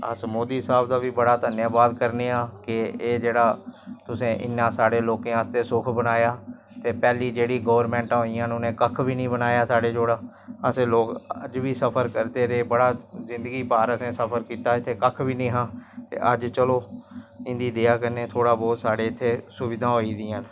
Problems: constant background noise